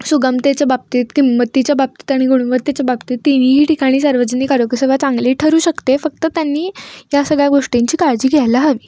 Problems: background sounds at intervals